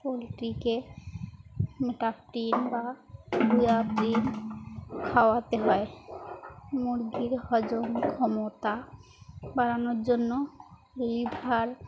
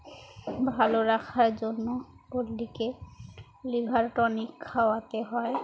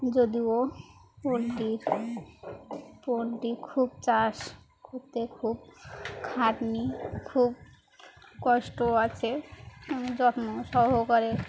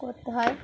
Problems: constant background noise, background conversations at intervals